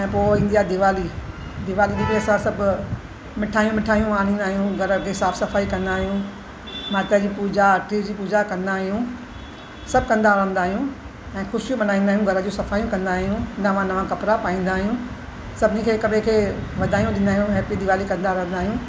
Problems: constant background noise